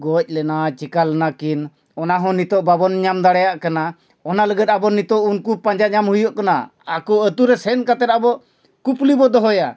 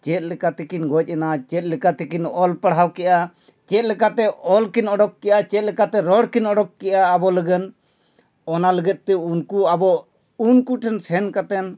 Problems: none marked